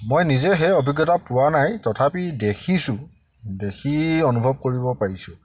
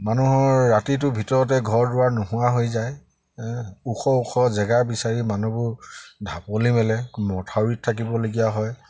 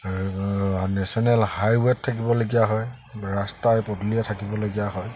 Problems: constant background noise